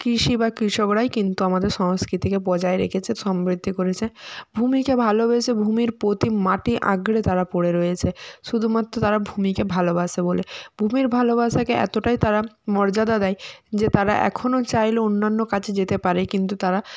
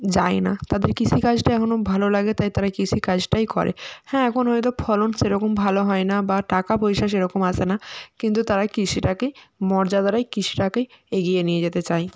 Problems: none marked